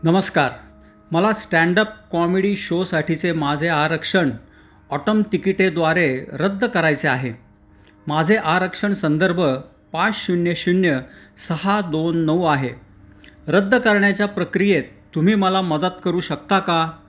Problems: constant background noise, background conversations at intervals